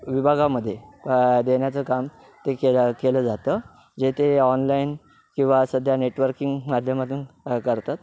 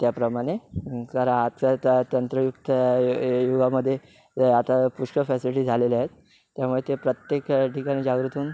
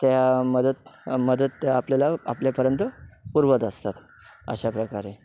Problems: background sounds at intervals